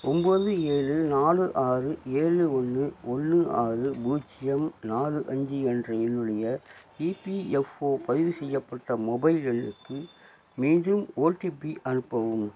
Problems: low volume